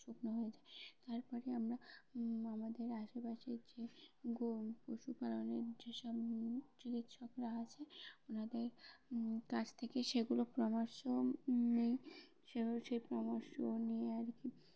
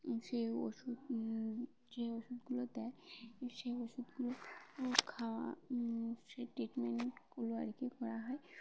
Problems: background sounds at intervals, background conversations at intervals